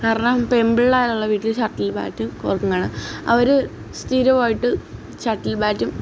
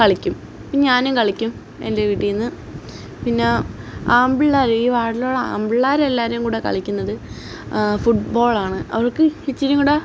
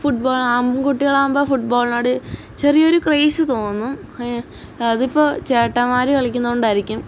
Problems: none marked